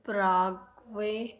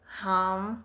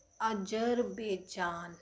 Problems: constant background noise